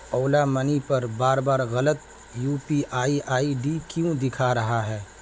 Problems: constant background noise